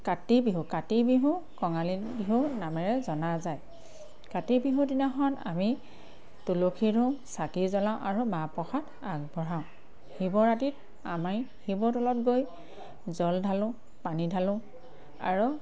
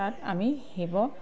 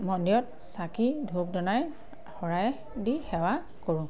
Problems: constant background noise, background conversations at intervals